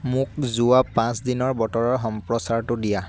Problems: constant background noise